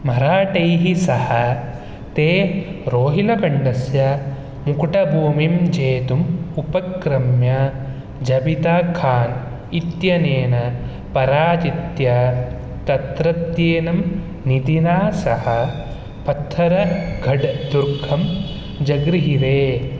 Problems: background sounds at intervals